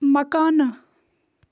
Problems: constant background noise